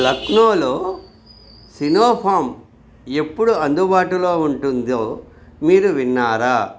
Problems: background sounds at intervals